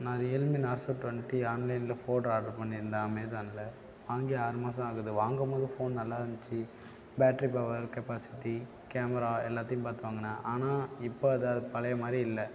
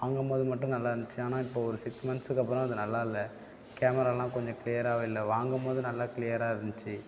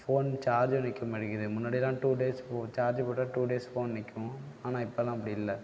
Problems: background sounds at intervals